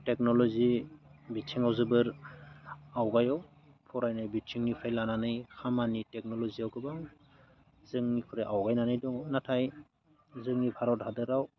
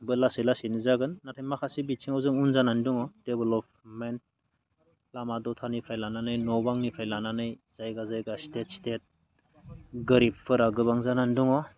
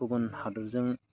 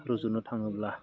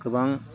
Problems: none marked